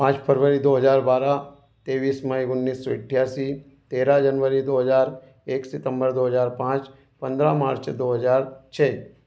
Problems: constant background noise